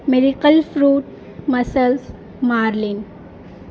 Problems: constant background noise